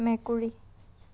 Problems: none marked